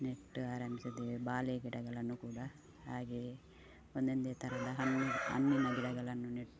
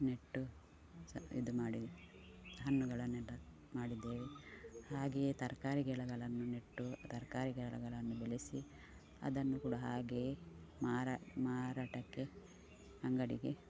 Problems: background sounds at intervals